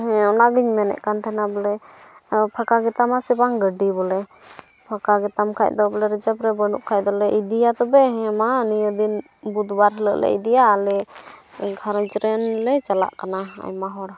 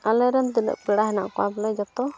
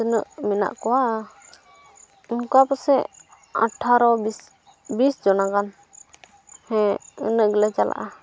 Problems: none marked